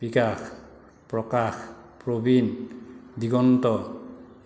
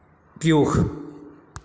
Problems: none marked